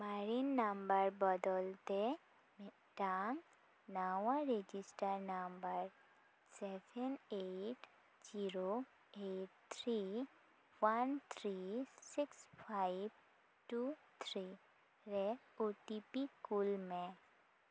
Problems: none marked